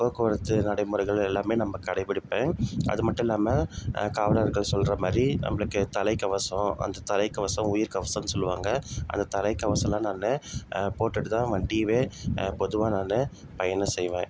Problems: constant background noise